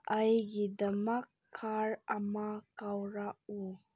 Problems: background sounds at intervals